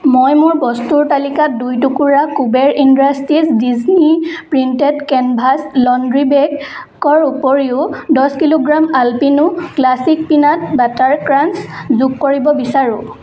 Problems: constant background noise